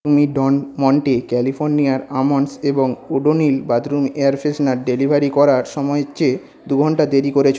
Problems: background conversations at intervals